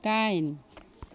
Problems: none marked